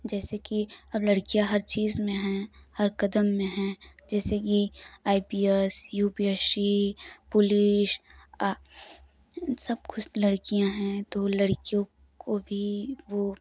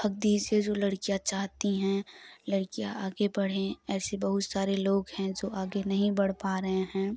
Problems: none marked